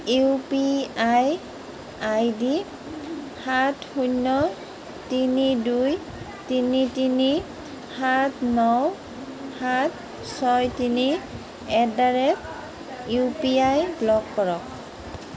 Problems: continuous background conversations